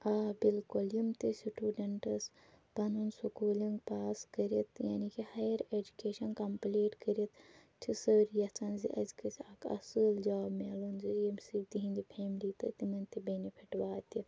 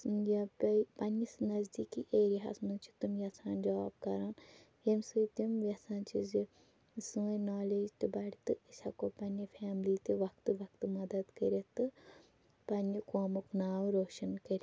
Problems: none marked